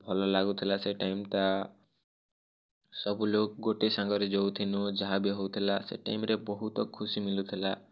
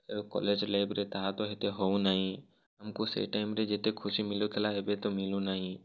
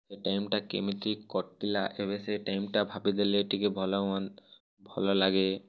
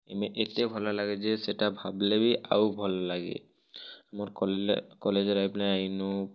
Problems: none marked